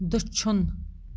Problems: background sounds at intervals